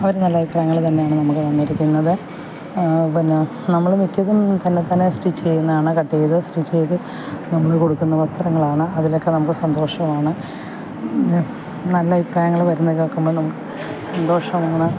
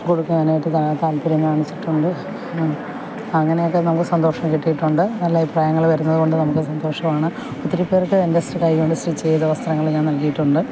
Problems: constant background noise